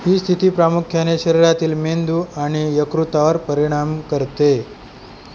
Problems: constant background noise